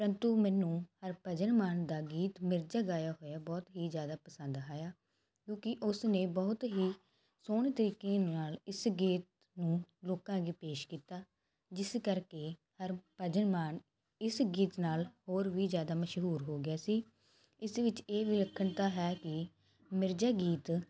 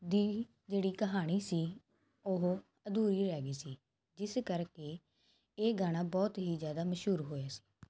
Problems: constant background noise